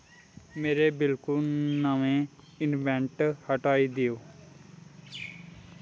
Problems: background sounds at intervals